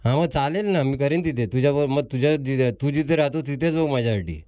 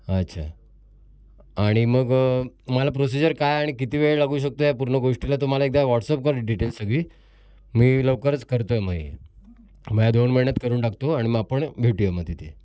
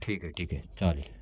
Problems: constant background noise, background conversations at intervals